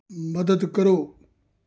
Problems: none marked